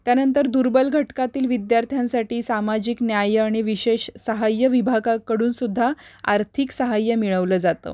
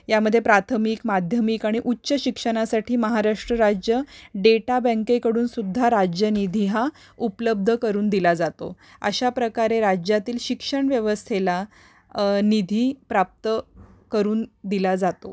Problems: background sounds at intervals